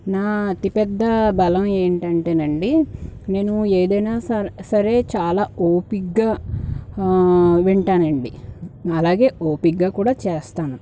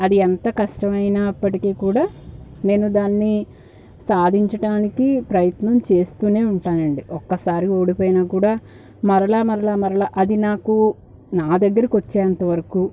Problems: background sounds at intervals